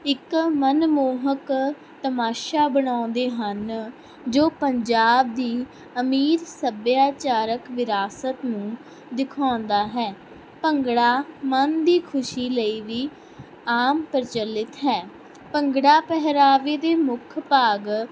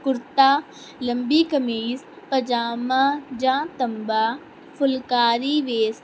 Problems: constant background noise